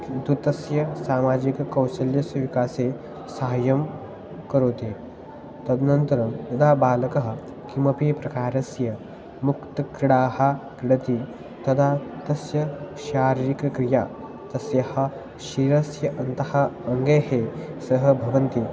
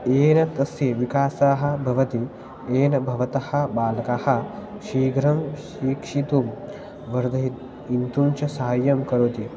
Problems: constant background noise